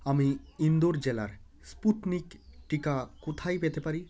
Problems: continuous background conversations